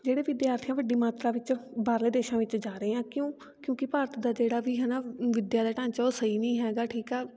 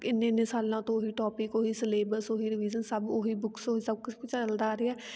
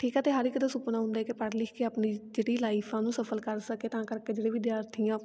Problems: constant background noise